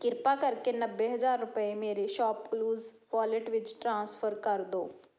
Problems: none marked